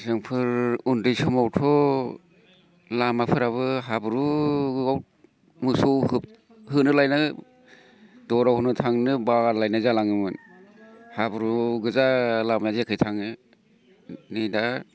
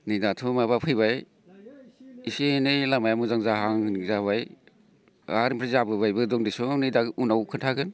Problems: none marked